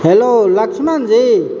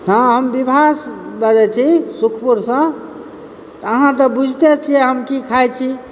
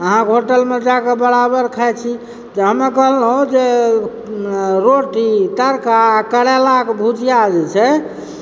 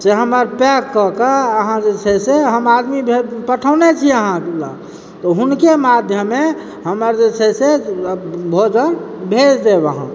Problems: background sounds at intervals